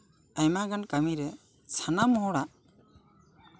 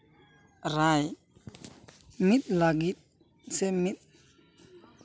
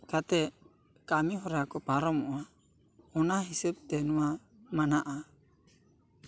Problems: none marked